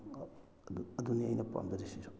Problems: none marked